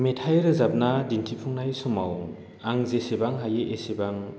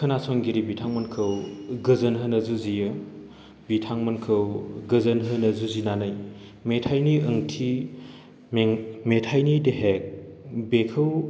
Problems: constant background noise